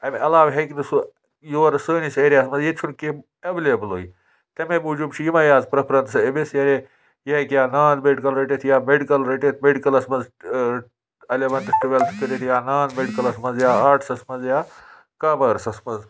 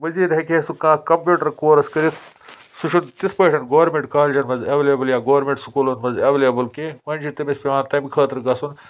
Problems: constant background noise